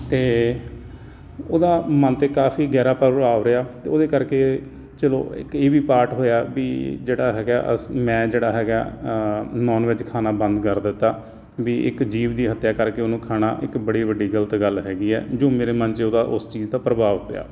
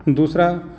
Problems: none marked